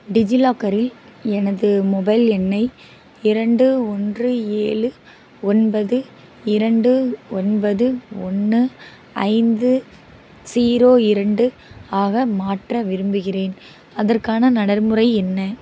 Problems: constant background noise